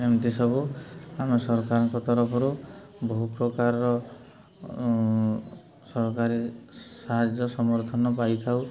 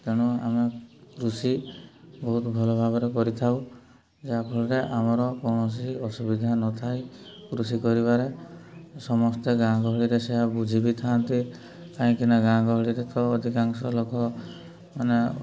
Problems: background sounds at intervals